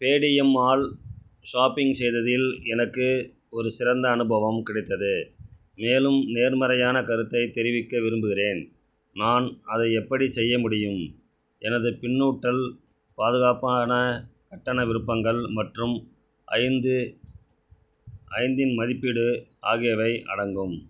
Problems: none marked